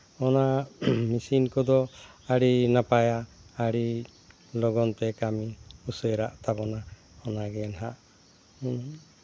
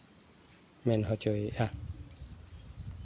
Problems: none marked